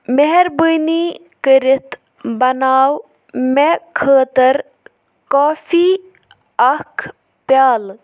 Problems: none marked